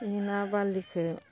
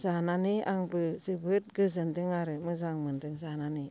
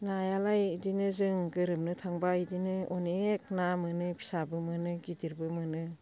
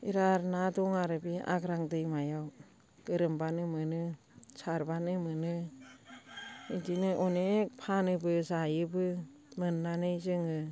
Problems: constant background noise